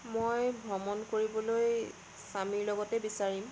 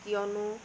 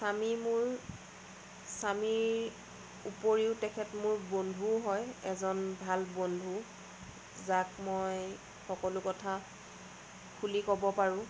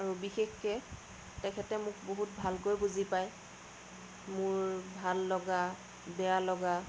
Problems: constant background noise